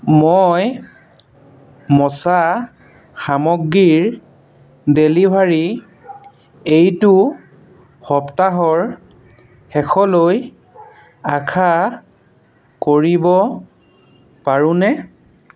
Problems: constant background noise